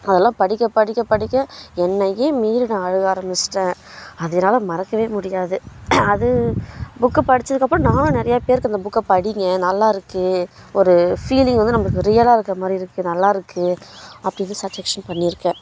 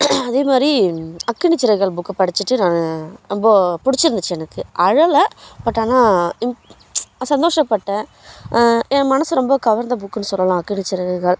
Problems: constant background noise